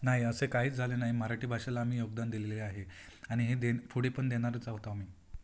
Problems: background sounds at intervals